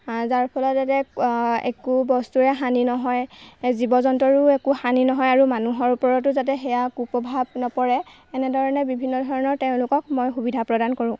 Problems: none marked